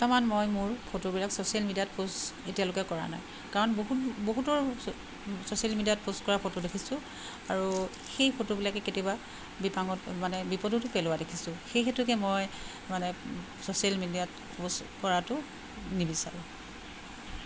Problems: constant background noise